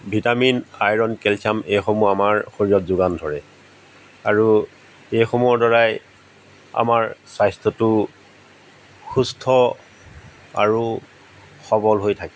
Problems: background sounds at intervals